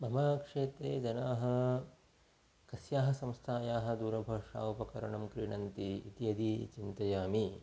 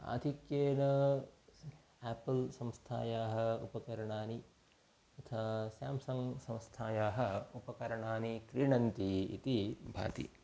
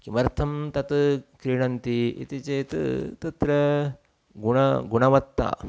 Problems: background sounds at intervals